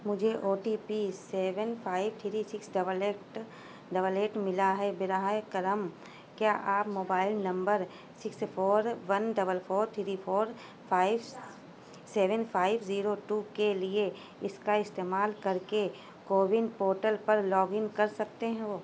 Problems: constant background noise